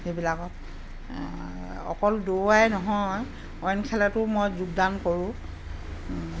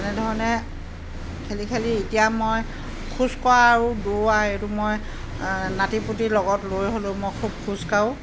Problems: none marked